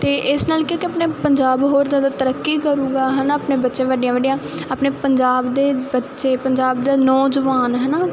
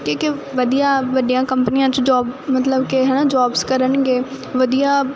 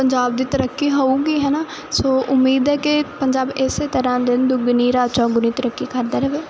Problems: none marked